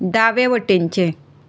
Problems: constant background noise